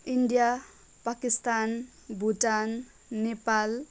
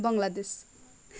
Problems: none marked